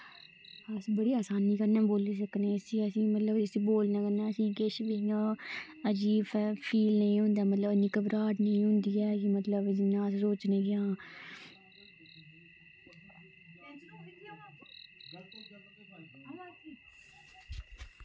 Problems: constant background noise